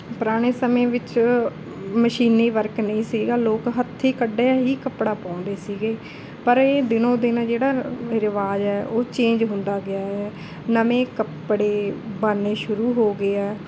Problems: background conversations at intervals